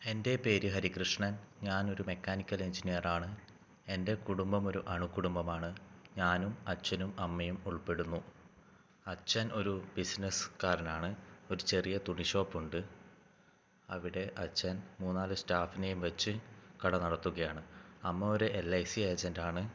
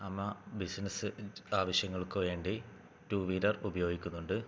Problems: low volume